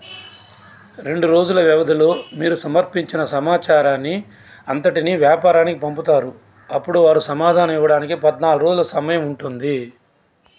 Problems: constant background noise